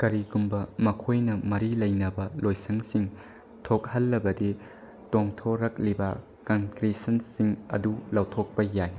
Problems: none marked